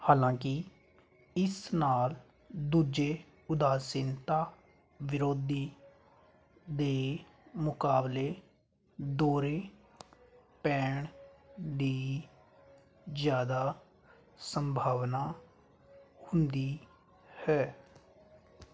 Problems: background sounds at intervals